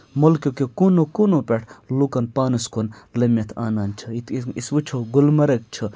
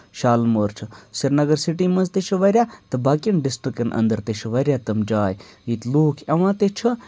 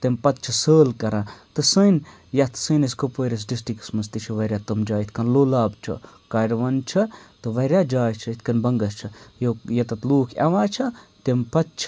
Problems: none marked